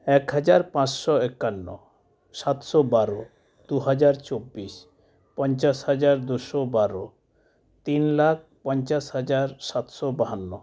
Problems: background sounds at intervals